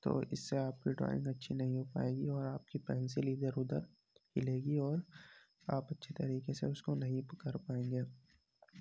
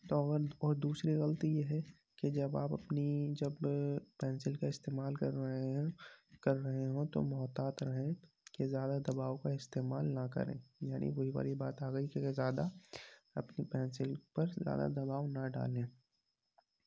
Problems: constant background noise, low volume